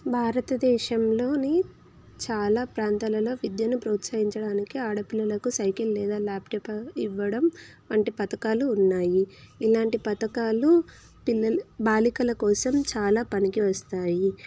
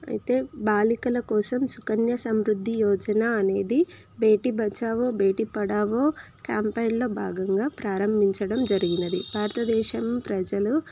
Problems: constant background noise